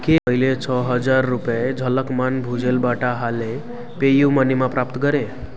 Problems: constant background noise